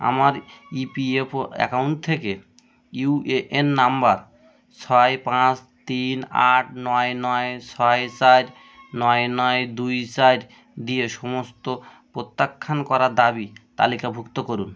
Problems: none marked